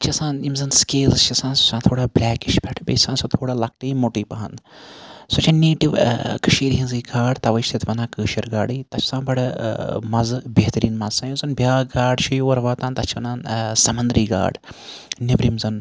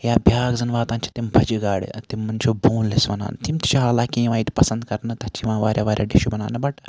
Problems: background sounds at intervals